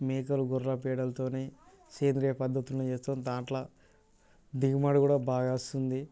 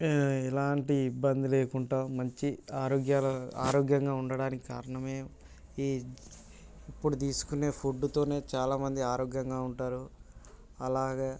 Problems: none marked